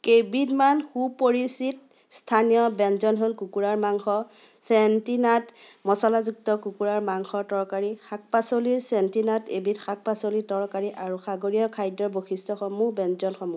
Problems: constant background noise, continuous background conversations